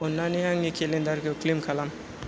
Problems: constant background noise